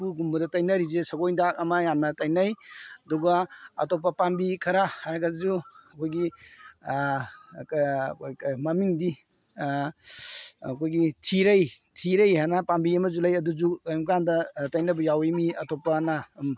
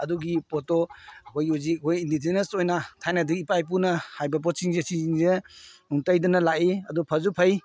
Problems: none marked